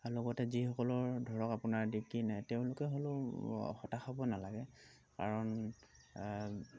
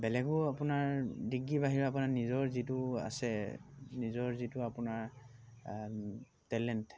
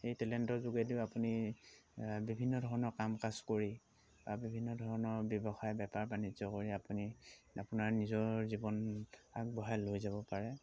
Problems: constant background noise